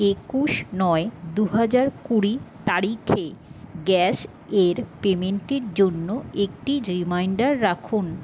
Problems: constant background noise